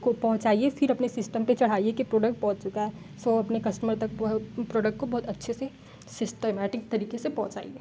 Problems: constant background noise